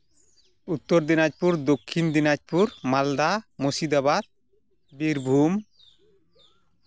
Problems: constant background noise